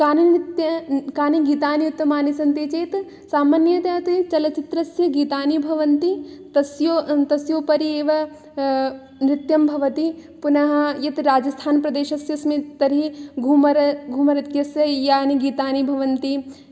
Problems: none marked